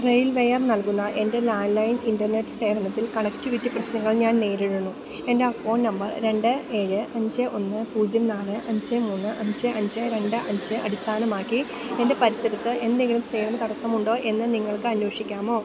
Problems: background sounds at intervals